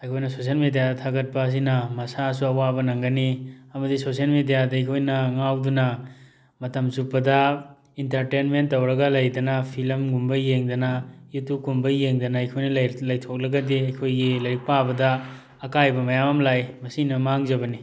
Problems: background sounds at intervals